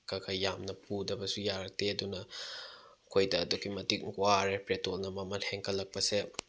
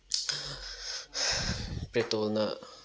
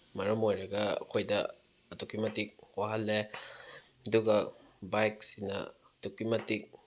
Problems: none marked